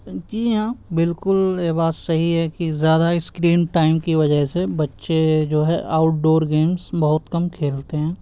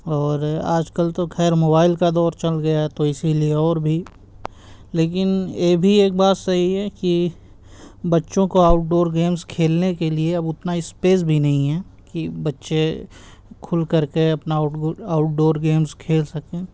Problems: constant background noise